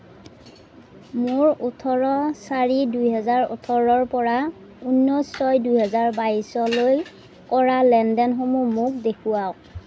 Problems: background sounds at intervals